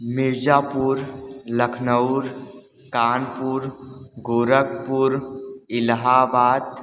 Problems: constant background noise, echo